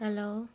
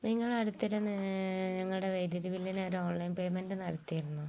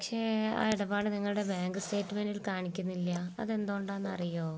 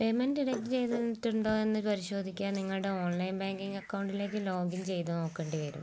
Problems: background sounds at intervals